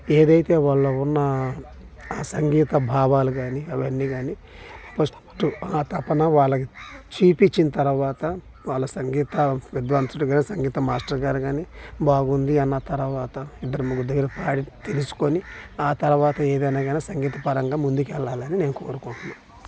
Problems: constant background noise